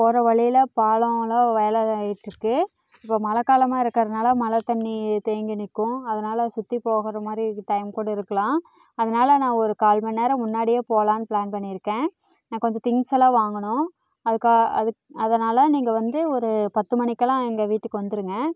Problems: none marked